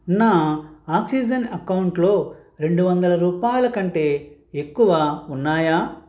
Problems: none marked